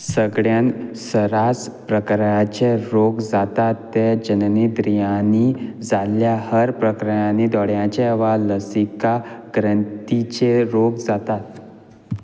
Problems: none marked